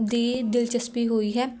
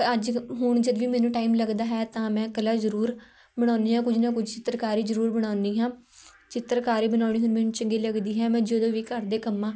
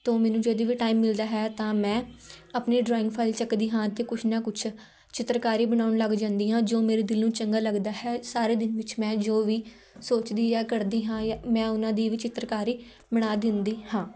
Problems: background conversations at intervals